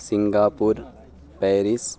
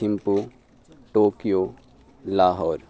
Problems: none marked